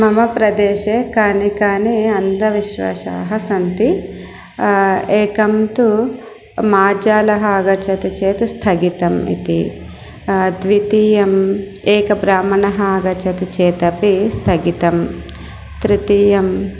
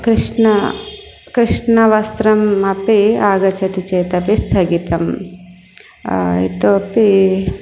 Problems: constant background noise